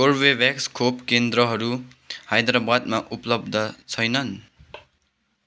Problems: none marked